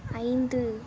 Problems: none marked